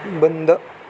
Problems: constant background noise